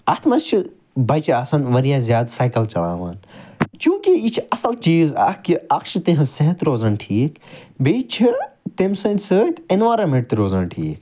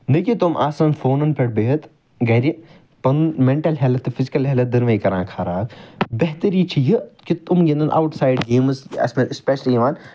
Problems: none marked